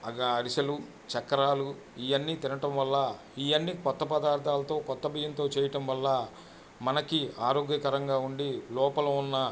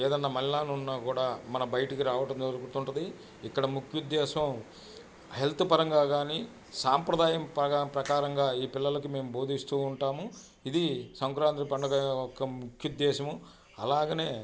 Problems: background sounds at intervals